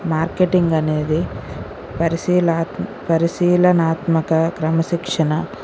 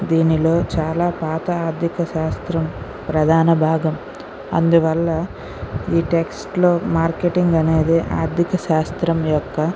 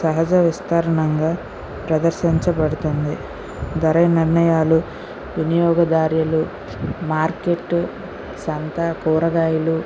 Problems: none marked